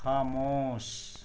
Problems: constant background noise, low volume